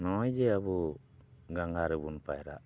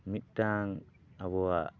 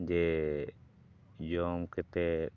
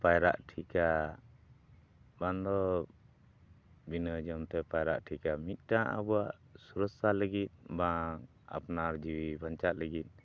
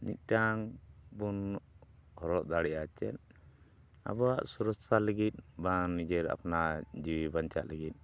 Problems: background sounds at intervals